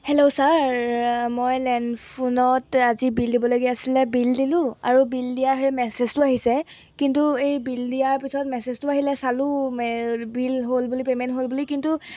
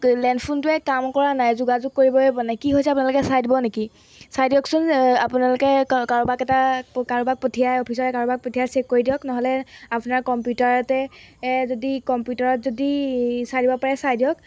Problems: background sounds at intervals